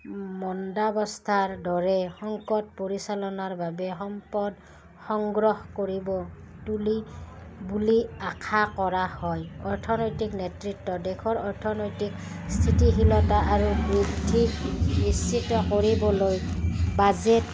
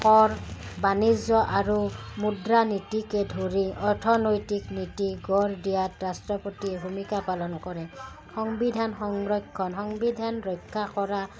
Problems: background sounds at intervals